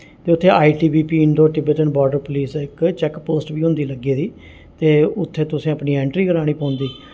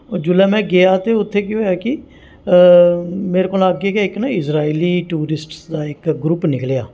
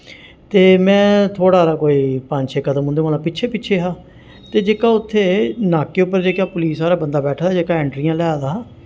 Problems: none marked